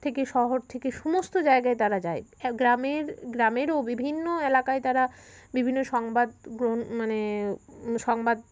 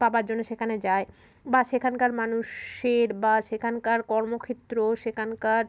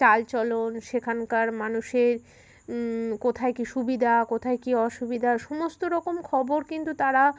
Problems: constant background noise